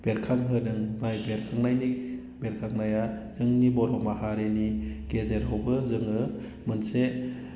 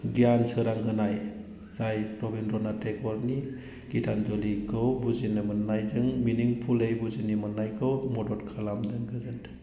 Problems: constant background noise